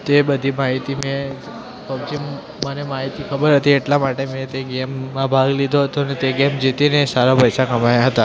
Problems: constant background noise, continuous background conversations